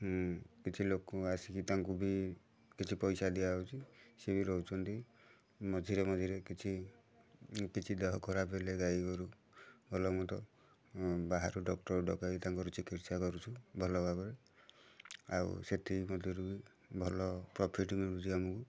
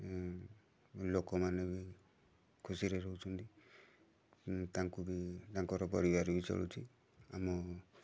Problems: constant background noise, continuous background conversations